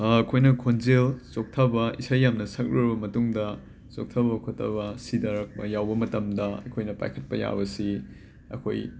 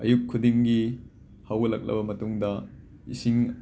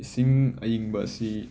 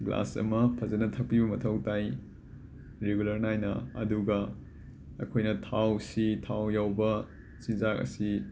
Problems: constant background noise